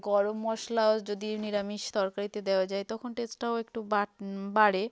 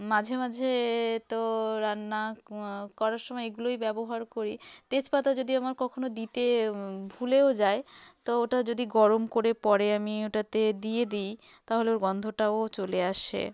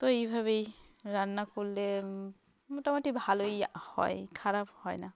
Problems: continuous background conversations